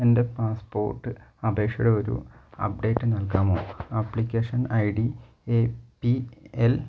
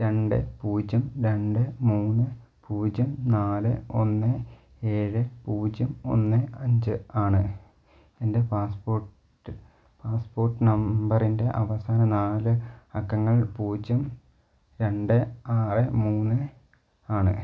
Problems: none marked